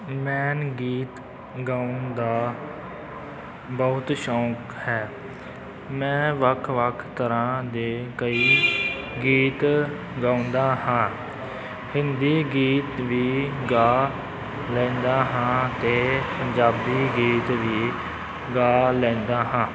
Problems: background sounds at intervals